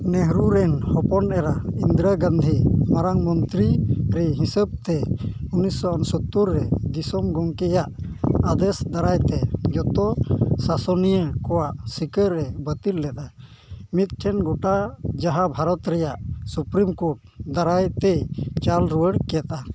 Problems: constant background noise